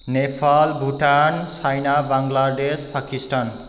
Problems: none marked